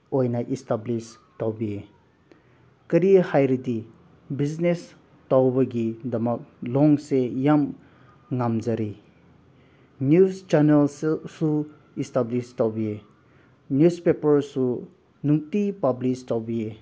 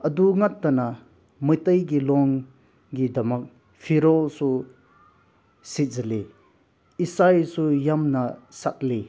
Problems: background sounds at intervals